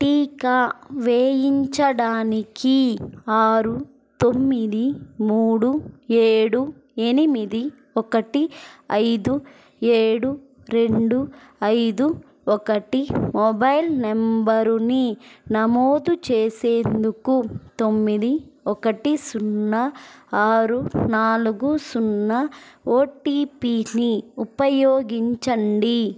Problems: constant background noise